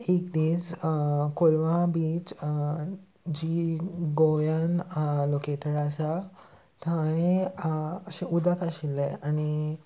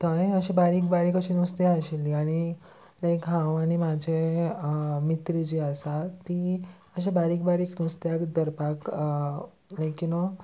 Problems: constant background noise, background conversations at intervals